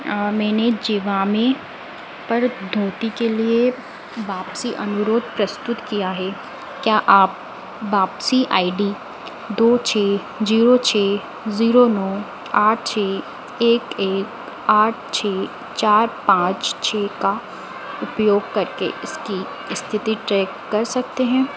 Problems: none marked